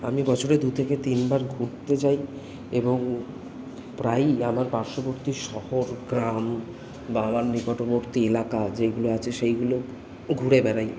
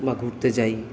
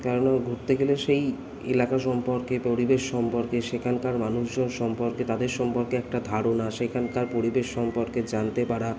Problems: constant background noise